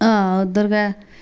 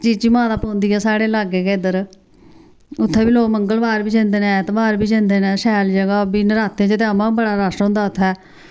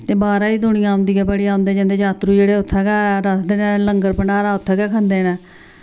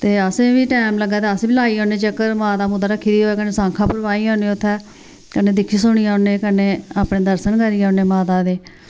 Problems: constant background noise